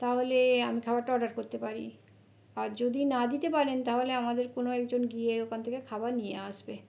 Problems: constant background noise